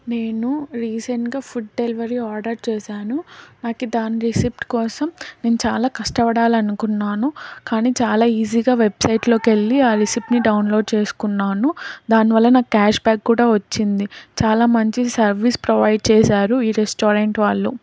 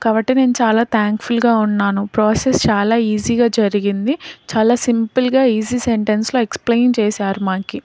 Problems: background sounds at intervals